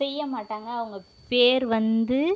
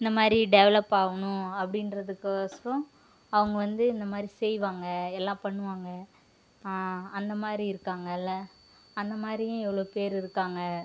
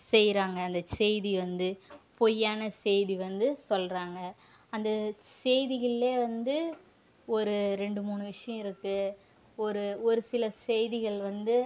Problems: background sounds at intervals